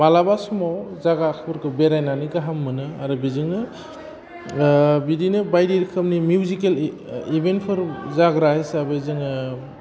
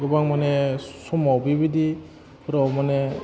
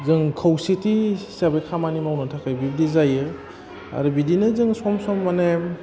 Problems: constant background noise